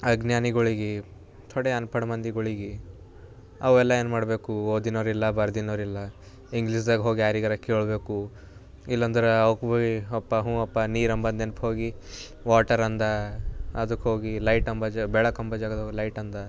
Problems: none marked